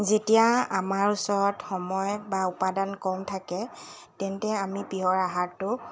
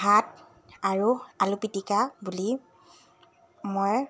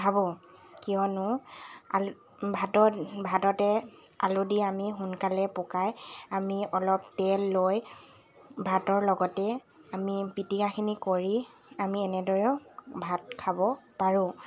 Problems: constant background noise